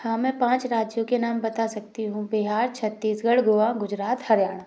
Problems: none marked